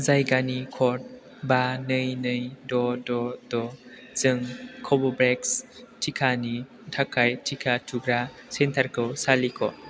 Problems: constant background noise